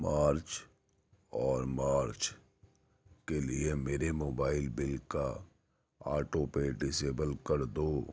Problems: none marked